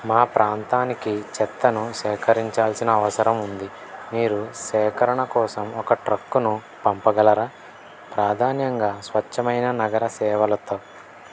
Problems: constant background noise